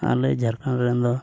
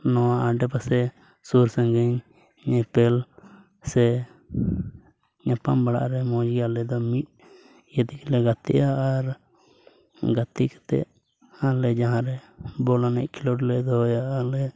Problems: background sounds at intervals, low volume